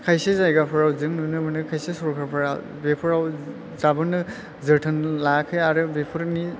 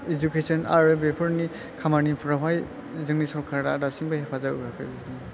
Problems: constant background noise, low volume